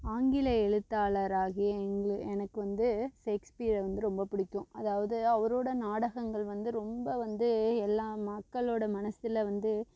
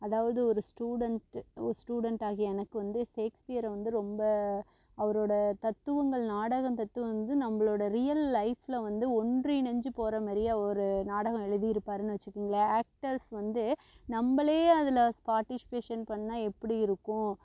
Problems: constant background noise